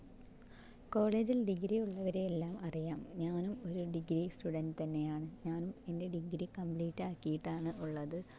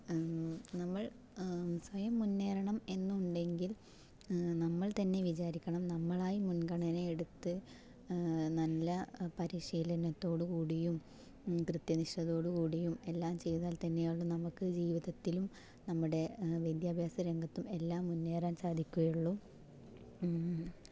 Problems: low volume